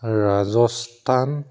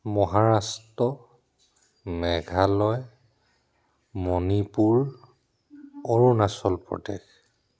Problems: none marked